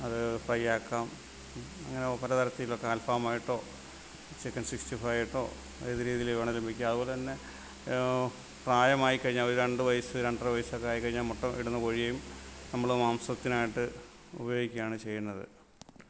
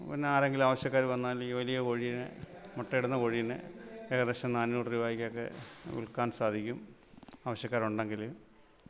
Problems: none marked